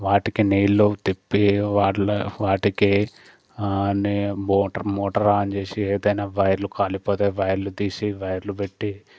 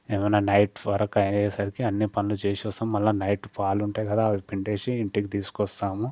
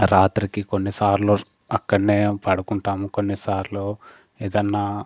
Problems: constant background noise